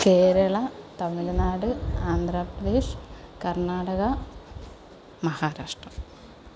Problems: none marked